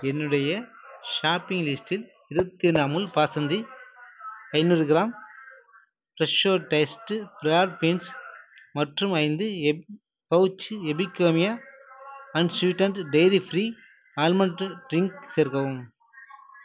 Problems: background sounds at intervals